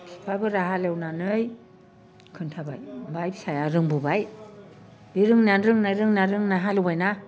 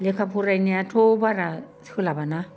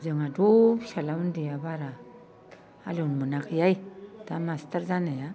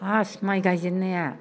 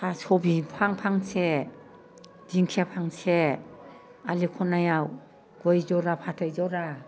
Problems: none marked